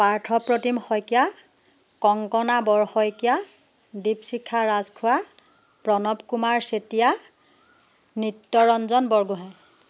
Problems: background sounds at intervals